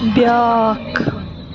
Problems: constant background noise